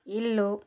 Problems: constant background noise